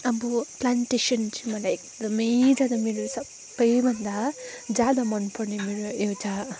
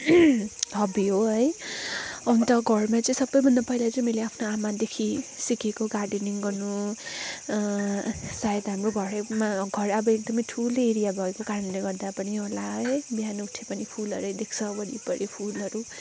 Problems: background sounds at intervals